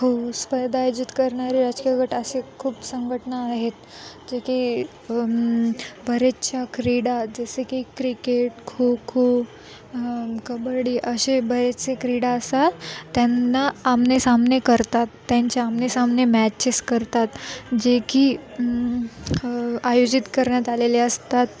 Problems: constant background noise, continuous background conversations